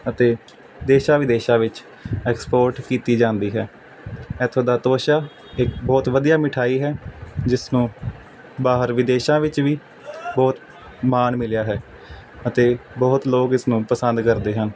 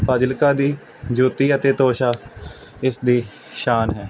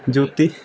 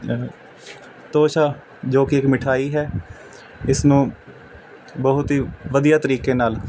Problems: none marked